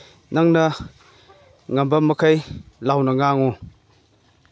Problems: background sounds at intervals